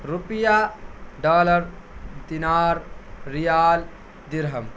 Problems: constant background noise